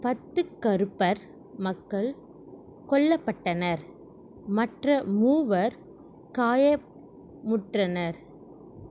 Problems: constant background noise